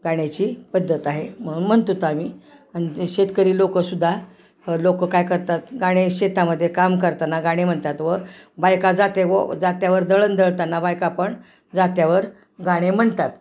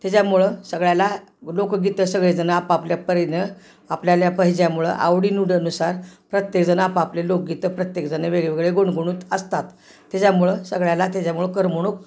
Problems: constant background noise, background conversations at intervals